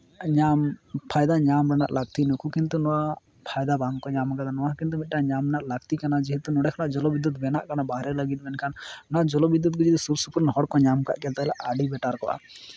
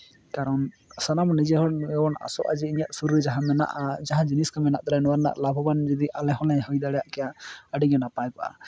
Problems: constant background noise